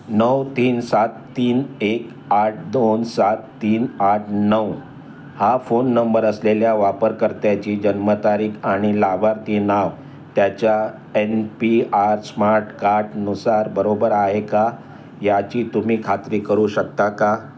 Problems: none marked